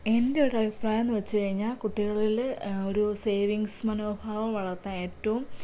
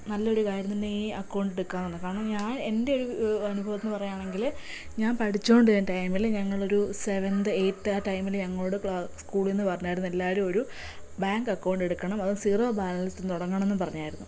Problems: none marked